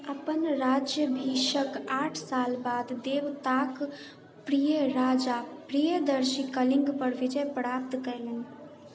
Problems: none marked